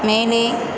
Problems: constant background noise